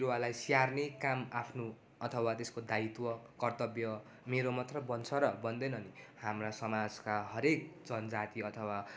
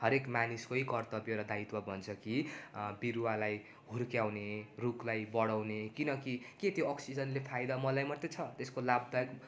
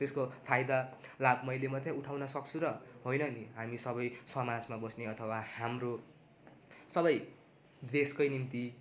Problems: constant background noise